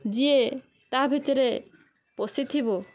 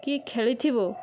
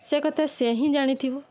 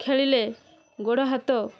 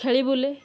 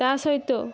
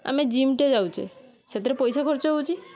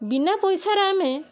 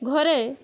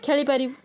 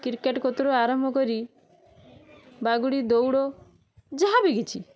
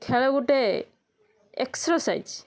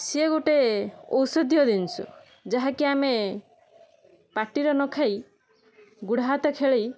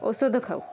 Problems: constant background noise